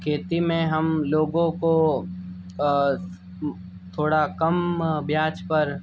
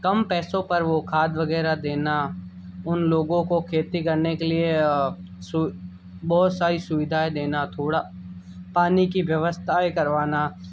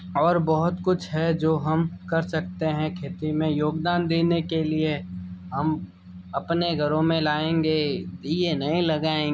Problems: background sounds at intervals